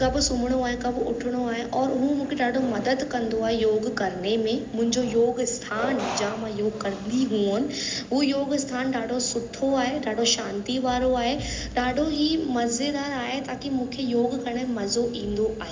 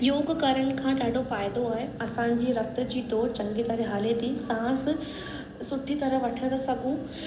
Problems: constant background noise, echo